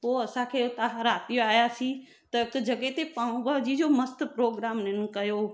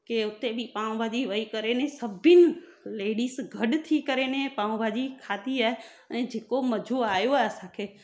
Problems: none marked